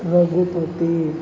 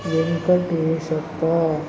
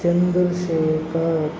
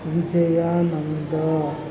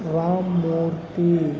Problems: background sounds at intervals